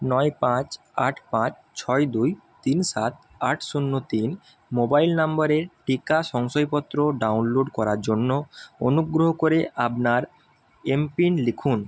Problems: none marked